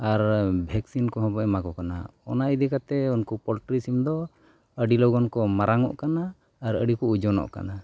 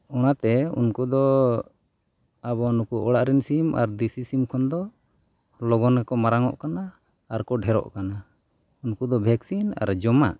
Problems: none marked